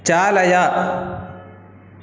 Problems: background sounds at intervals